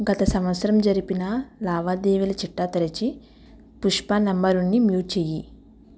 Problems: constant background noise